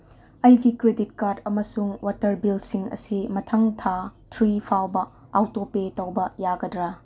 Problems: none marked